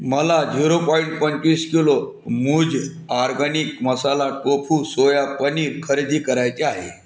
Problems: none marked